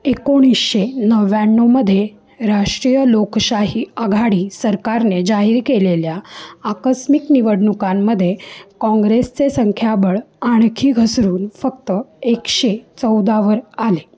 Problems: none marked